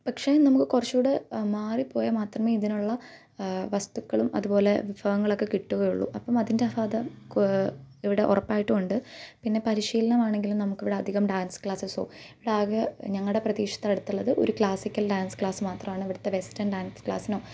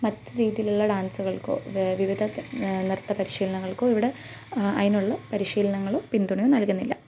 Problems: background sounds at intervals